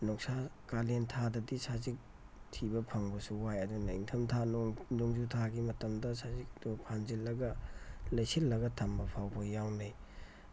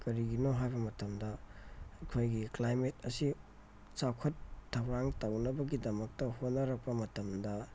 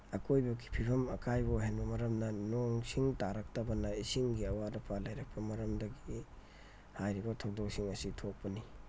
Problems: background sounds at intervals, low volume